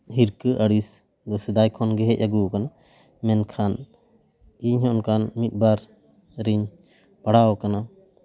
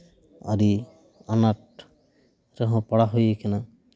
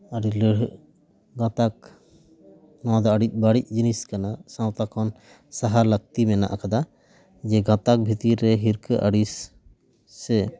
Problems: none marked